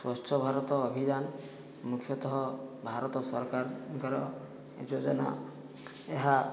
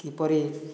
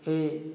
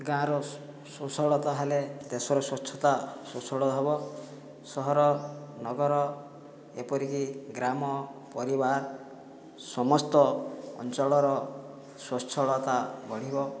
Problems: low volume